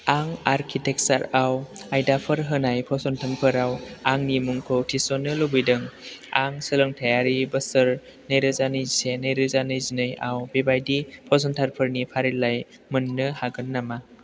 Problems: constant background noise